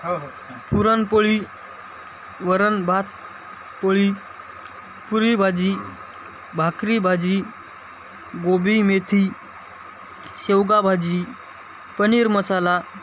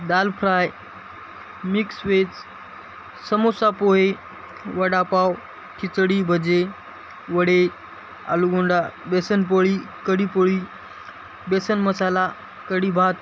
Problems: constant background noise, background conversations at intervals